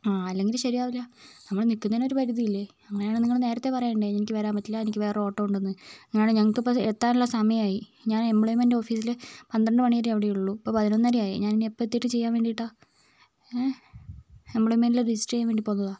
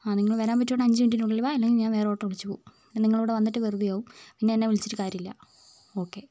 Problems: none marked